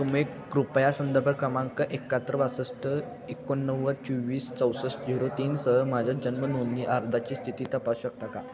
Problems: constant background noise, continuous background conversations